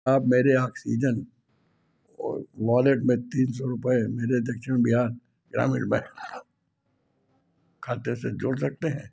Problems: background sounds at intervals